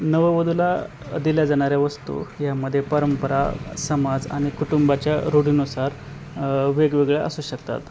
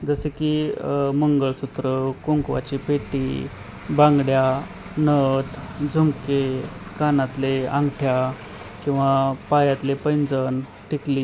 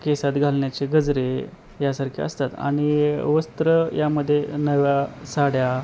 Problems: constant background noise